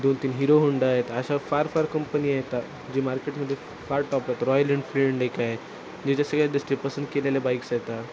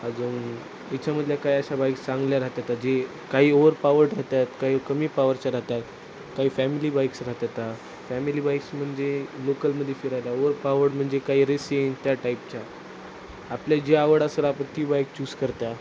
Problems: constant background noise